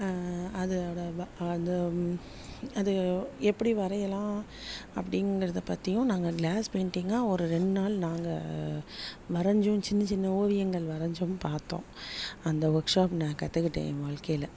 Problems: none marked